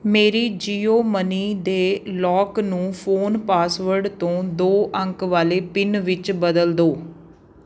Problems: none marked